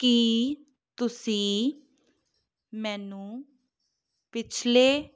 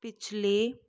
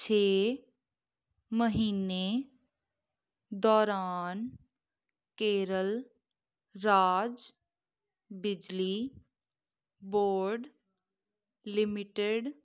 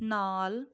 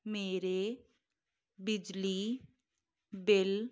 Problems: none marked